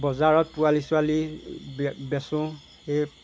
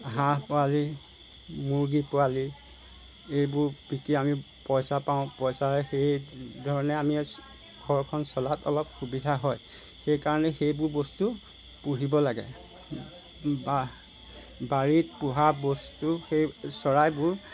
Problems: background sounds at intervals